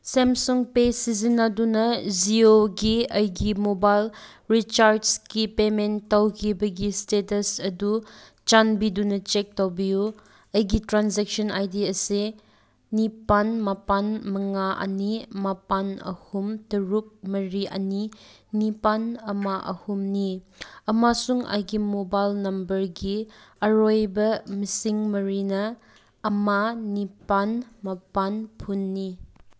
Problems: none marked